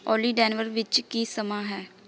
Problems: background sounds at intervals, background conversations at intervals